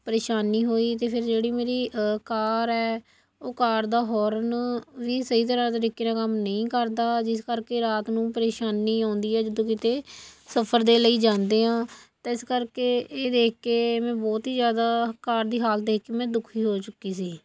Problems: background sounds at intervals